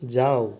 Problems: constant background noise